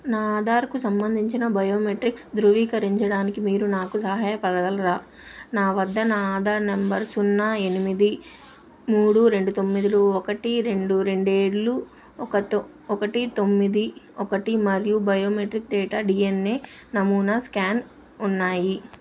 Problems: constant background noise